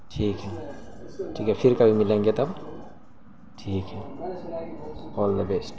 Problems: constant background noise